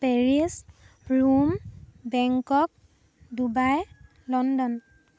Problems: background sounds at intervals